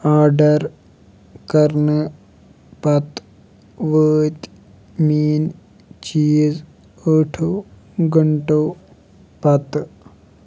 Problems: background sounds at intervals